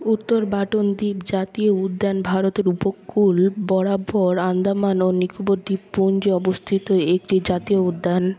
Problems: none marked